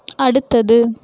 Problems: none marked